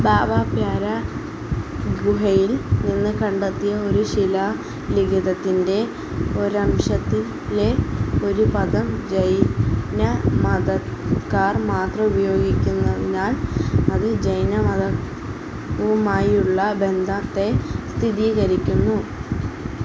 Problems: constant background noise